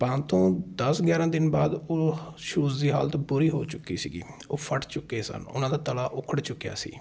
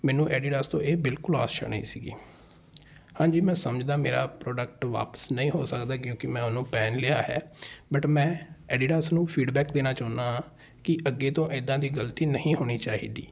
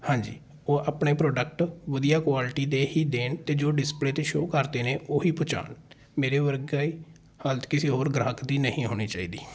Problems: background conversations at intervals